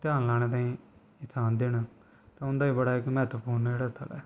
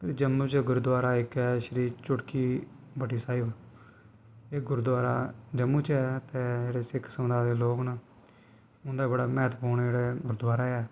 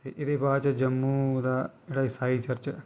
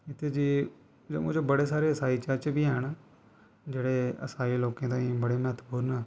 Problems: background sounds at intervals